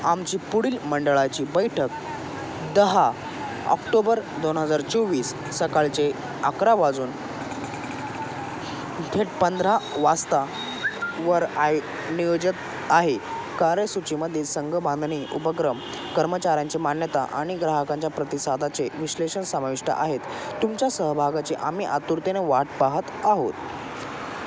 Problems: constant background noise, continuous background conversations